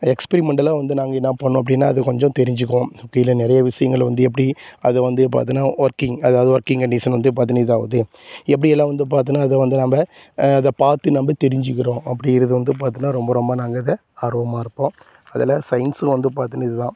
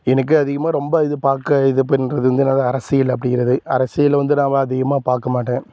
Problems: constant background noise